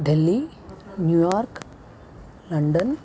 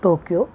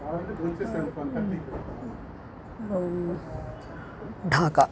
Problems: constant background noise